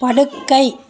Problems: continuous background conversations